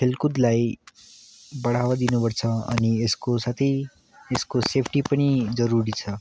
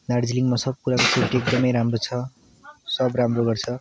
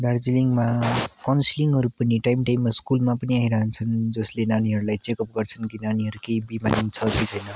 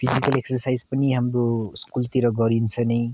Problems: none marked